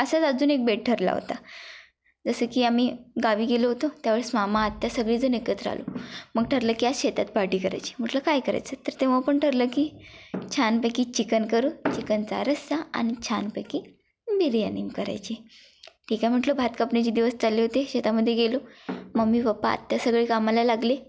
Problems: constant background noise, background conversations at intervals